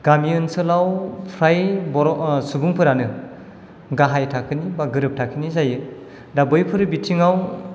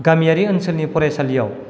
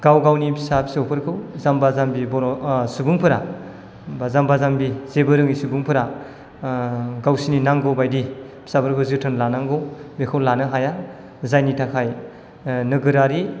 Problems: none marked